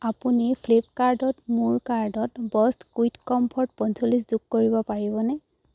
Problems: none marked